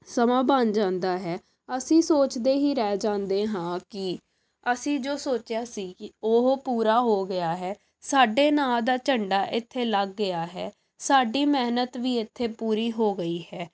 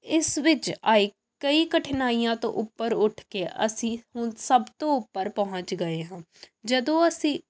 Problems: background sounds at intervals